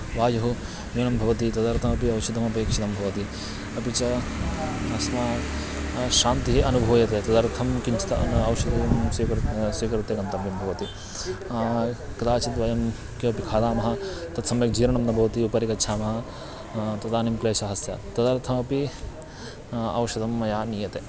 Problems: constant background noise, background conversations at intervals